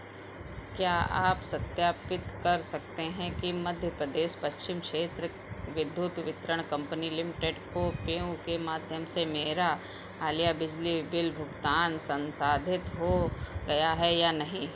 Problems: constant background noise